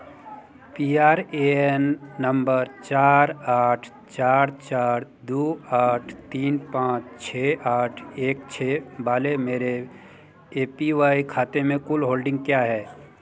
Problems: none marked